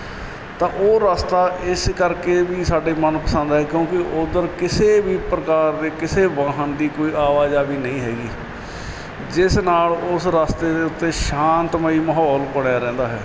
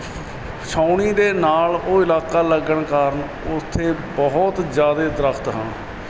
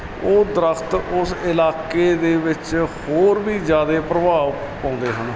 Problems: constant background noise